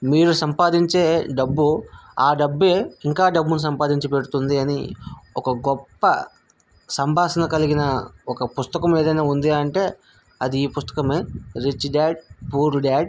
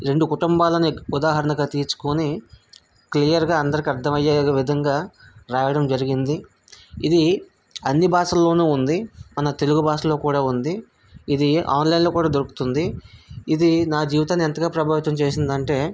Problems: none marked